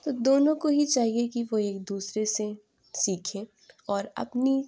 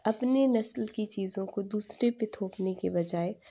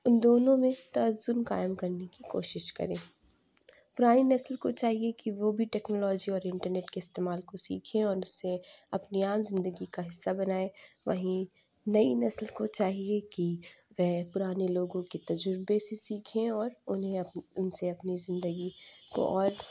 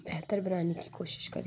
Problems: constant background noise, low volume